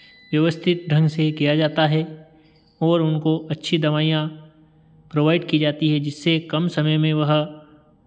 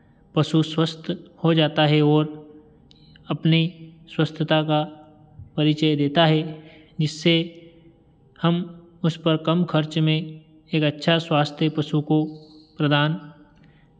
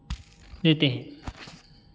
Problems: background sounds at intervals